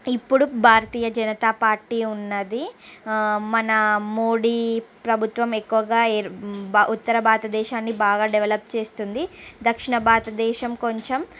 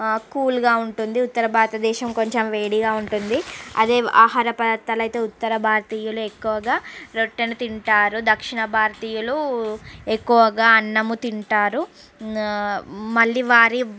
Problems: none marked